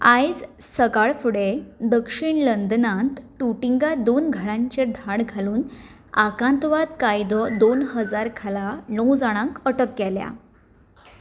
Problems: background sounds at intervals